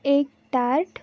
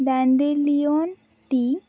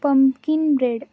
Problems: none marked